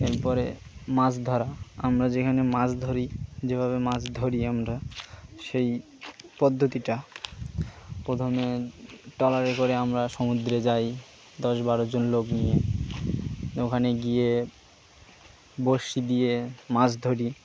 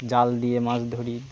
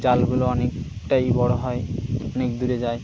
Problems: constant background noise